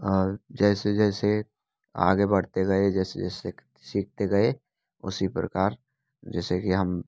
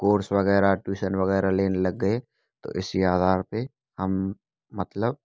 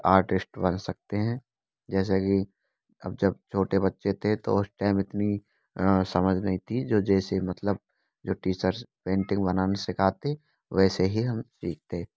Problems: constant background noise